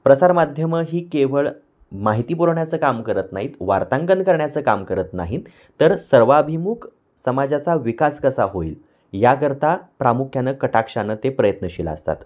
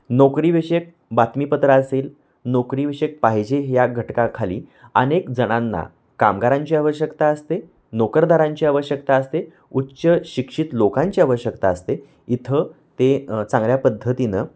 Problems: constant background noise